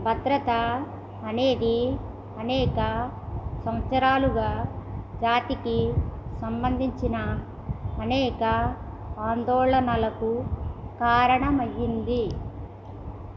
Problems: constant background noise